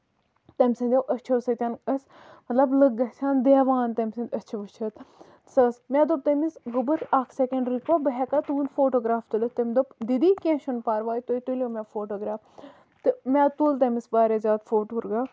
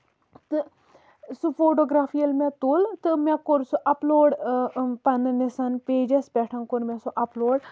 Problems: none marked